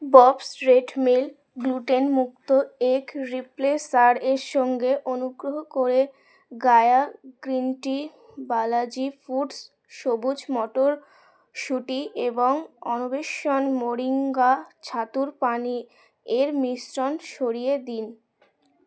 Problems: constant background noise, background conversations at intervals